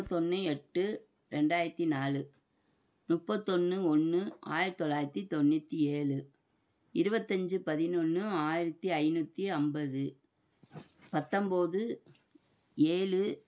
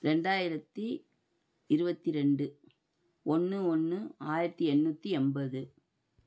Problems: none marked